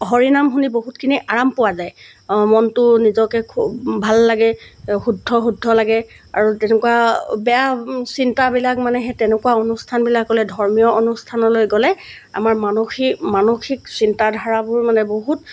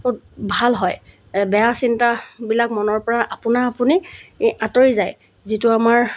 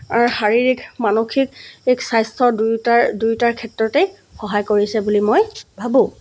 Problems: background sounds at intervals